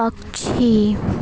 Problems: none marked